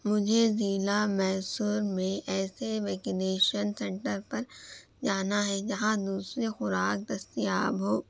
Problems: constant background noise, low volume